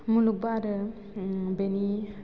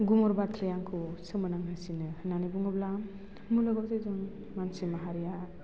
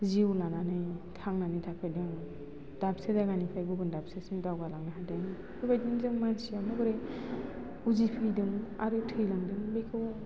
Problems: constant background noise